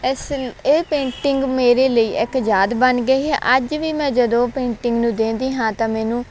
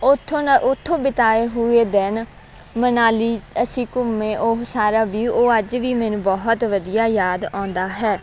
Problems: none marked